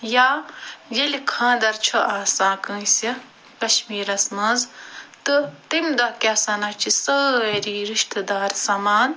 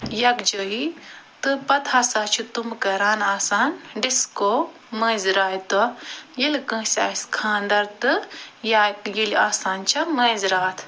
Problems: constant background noise